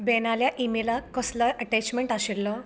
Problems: background sounds at intervals